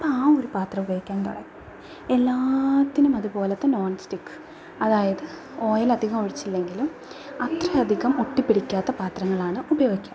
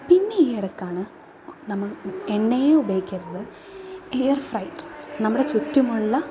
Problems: background sounds at intervals, low volume